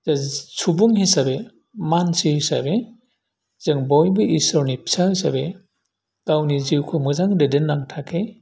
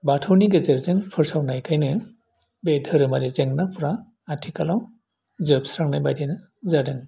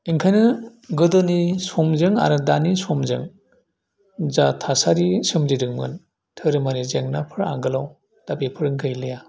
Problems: none marked